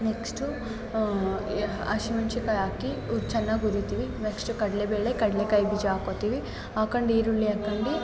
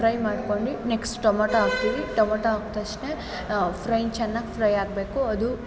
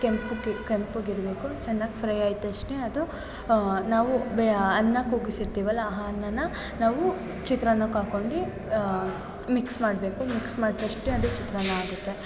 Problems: constant background noise, background conversations at intervals